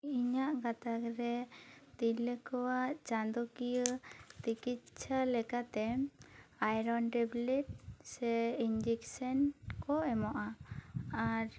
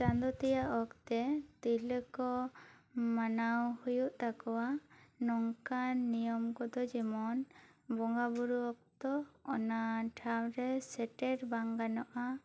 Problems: none marked